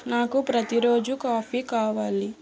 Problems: none marked